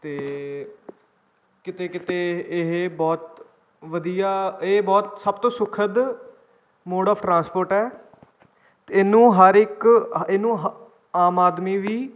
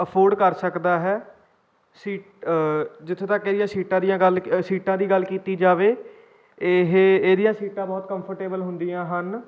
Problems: none marked